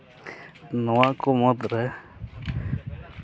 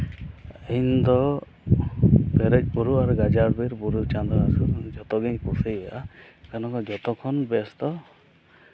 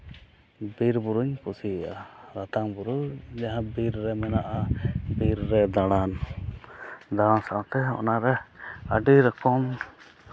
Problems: none marked